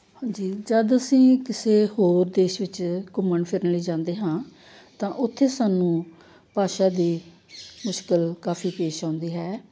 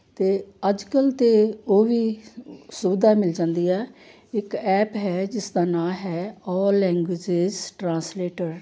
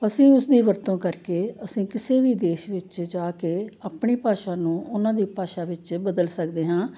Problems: none marked